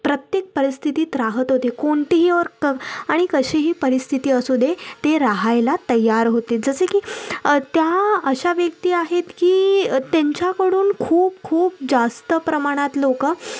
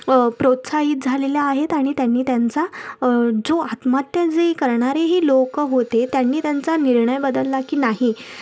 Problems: none marked